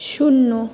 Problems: constant background noise